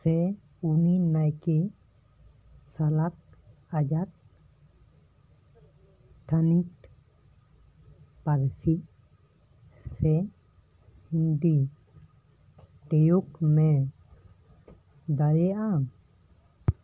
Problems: background conversations at intervals